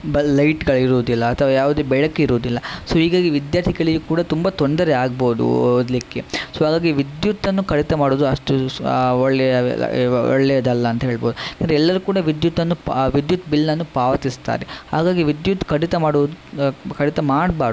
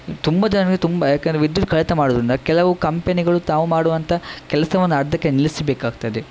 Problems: constant background noise